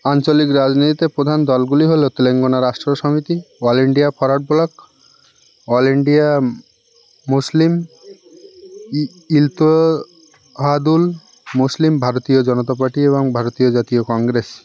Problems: constant background noise, continuous background conversations